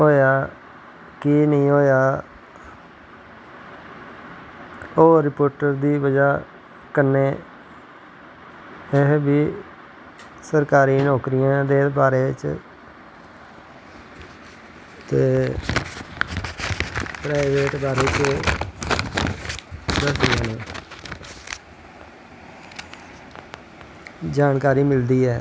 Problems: constant background noise